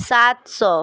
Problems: constant background noise